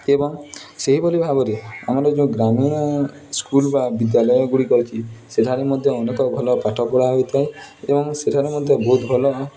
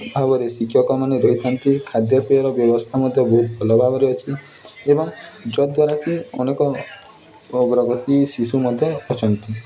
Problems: constant background noise